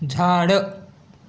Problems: constant background noise